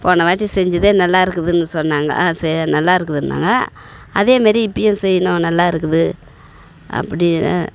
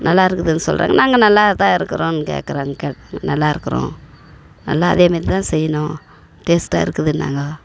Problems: constant background noise, background conversations at intervals